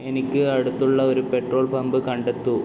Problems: constant background noise